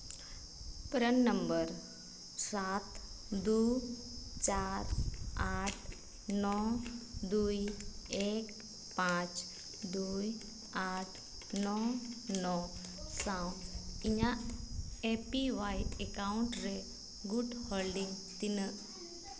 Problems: constant background noise, background conversations at intervals